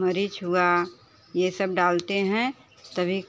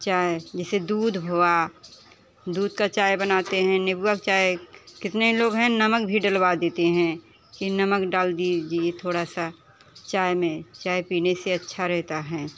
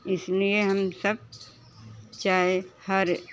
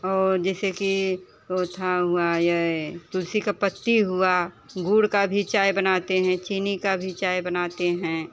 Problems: constant background noise, continuous background conversations